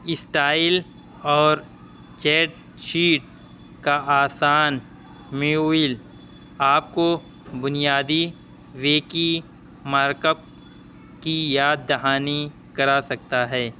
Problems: constant background noise